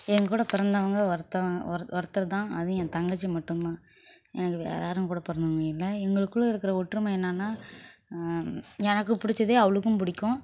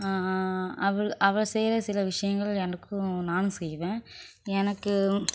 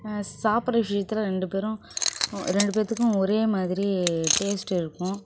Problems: background sounds at intervals